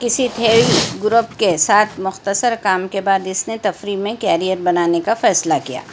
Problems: constant background noise